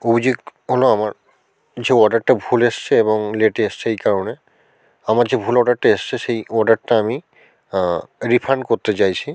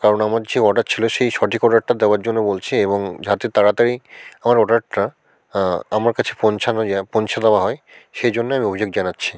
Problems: constant background noise